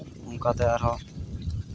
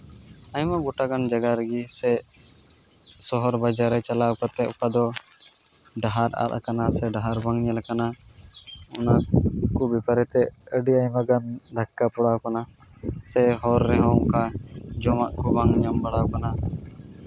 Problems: background sounds at intervals, background conversations at intervals